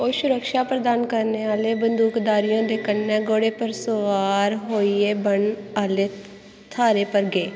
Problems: constant background noise